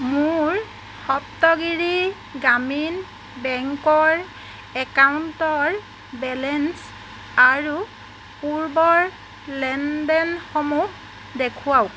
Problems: constant background noise